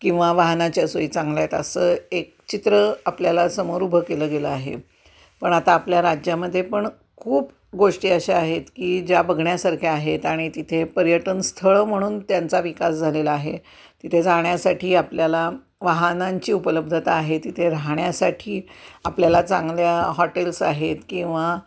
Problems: background sounds at intervals